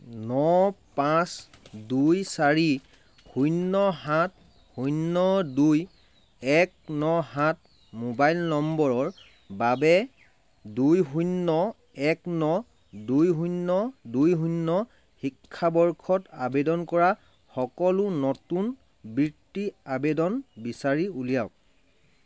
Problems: background sounds at intervals